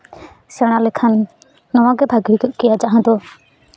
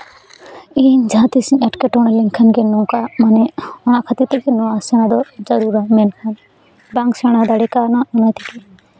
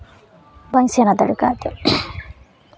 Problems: background sounds at intervals, background conversations at intervals